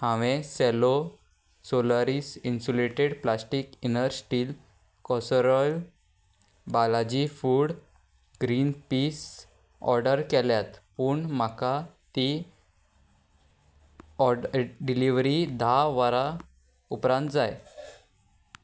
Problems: background sounds at intervals